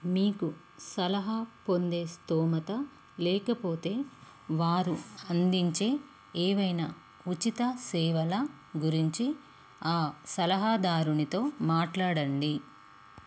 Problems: constant background noise